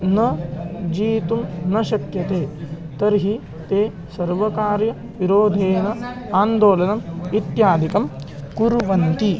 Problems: constant background noise, continuous background conversations